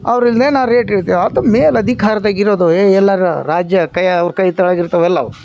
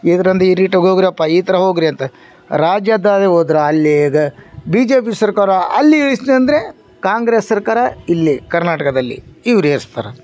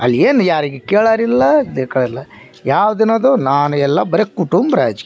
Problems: none marked